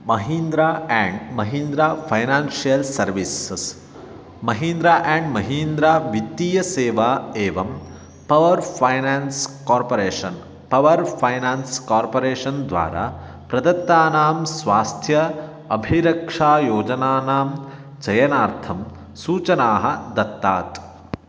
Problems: constant background noise